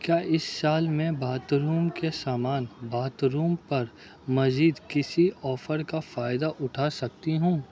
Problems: background sounds at intervals, background conversations at intervals